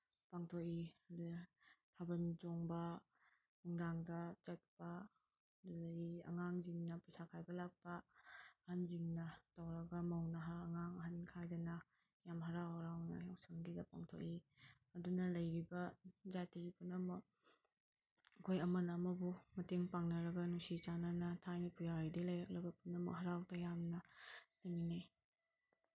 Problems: none marked